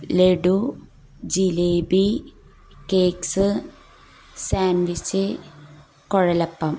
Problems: low volume